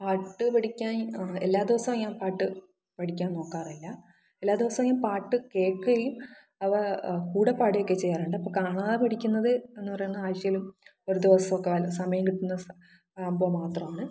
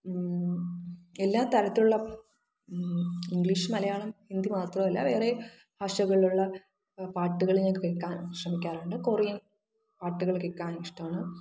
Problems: echo